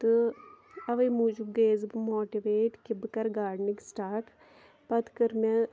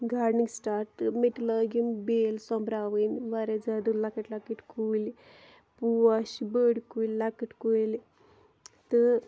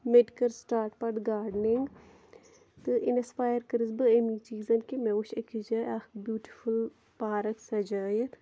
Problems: none marked